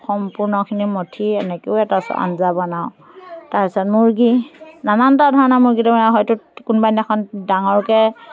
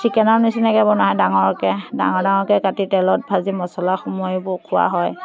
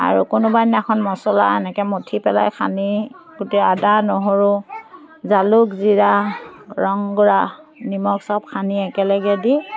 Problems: constant background noise, continuous background conversations